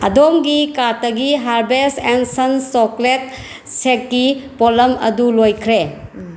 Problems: constant background noise